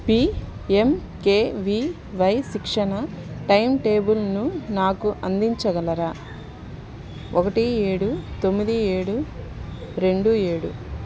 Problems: constant background noise